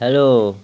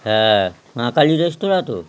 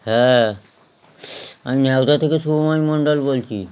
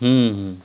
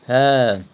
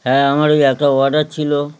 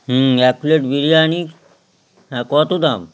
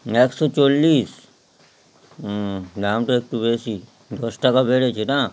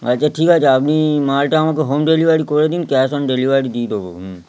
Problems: none marked